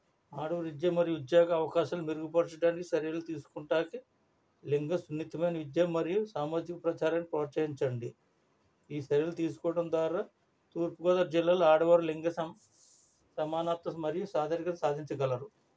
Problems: low volume